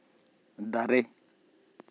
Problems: constant background noise